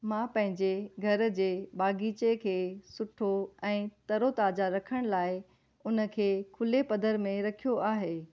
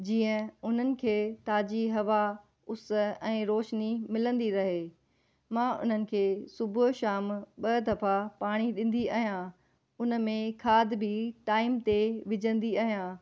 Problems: none marked